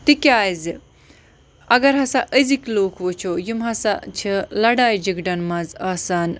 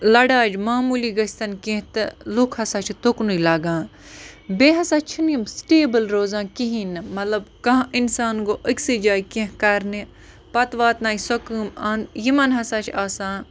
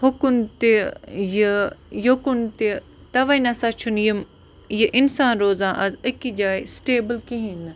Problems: constant background noise